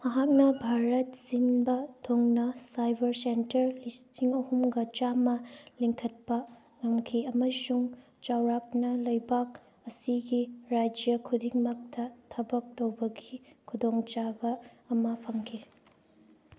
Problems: background sounds at intervals